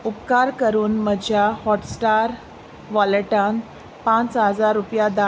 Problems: constant background noise